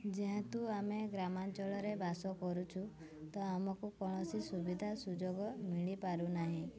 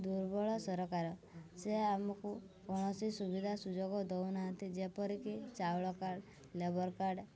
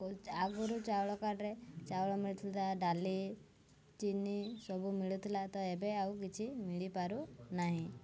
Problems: none marked